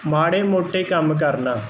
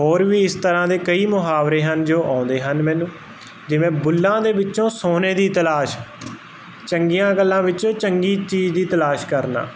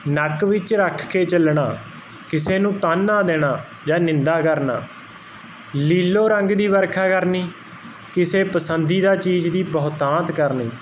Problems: background sounds at intervals